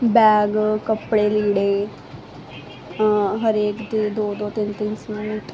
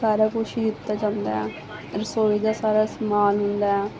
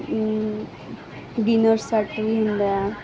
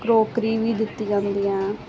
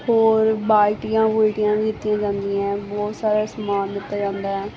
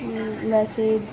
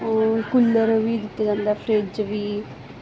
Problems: constant background noise